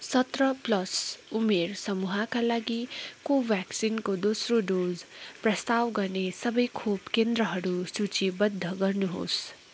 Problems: none marked